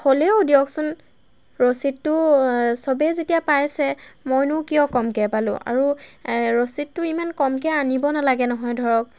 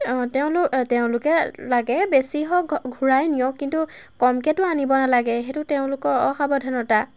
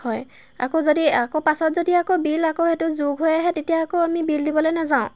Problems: background sounds at intervals